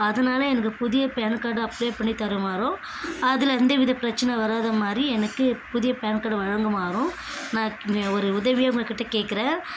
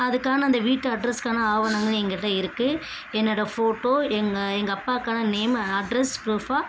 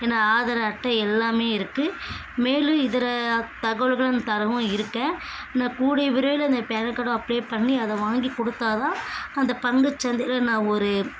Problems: constant background noise